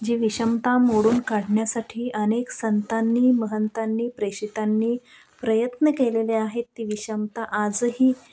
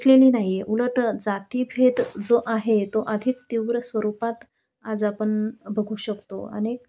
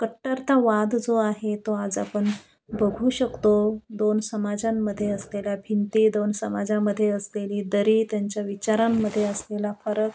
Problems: none marked